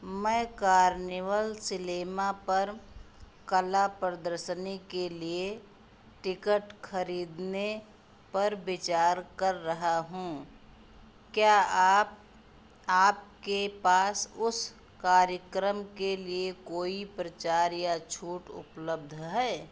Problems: constant background noise